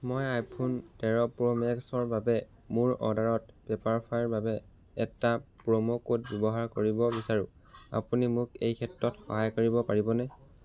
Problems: background sounds at intervals